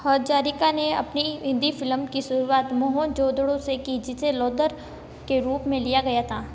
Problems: constant background noise, background conversations at intervals